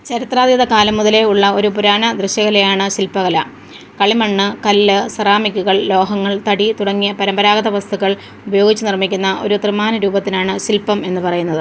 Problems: background sounds at intervals